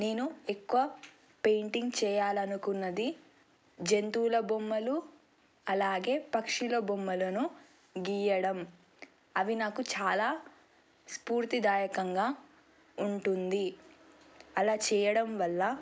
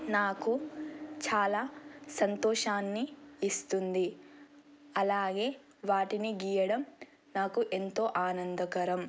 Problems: none marked